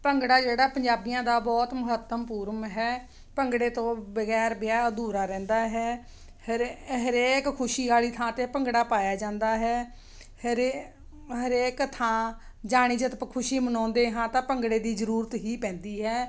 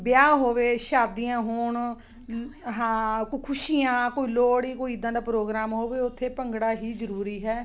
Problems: constant background noise